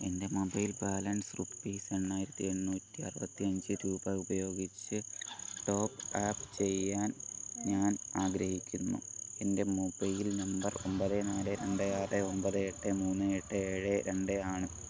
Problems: constant background noise, low volume